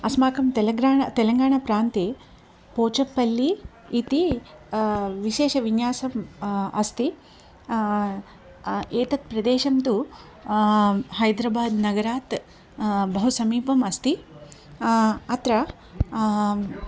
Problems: background sounds at intervals